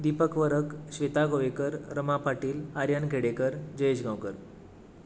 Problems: background sounds at intervals